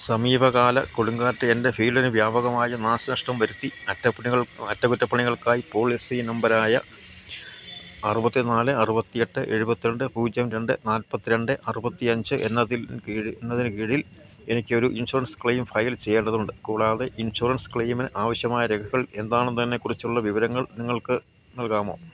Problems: low volume